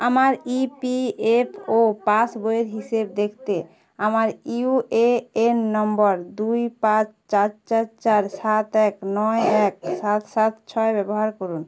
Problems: background conversations at intervals